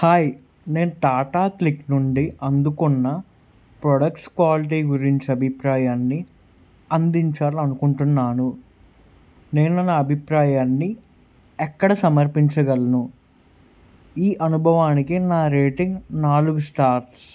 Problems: none marked